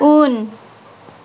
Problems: constant background noise